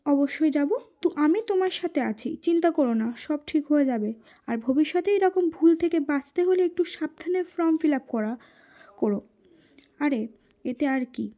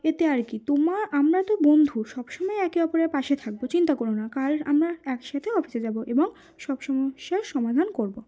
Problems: background sounds at intervals